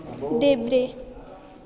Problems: continuous background conversations